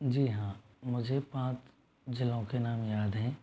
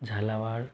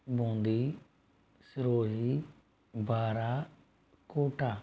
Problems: background sounds at intervals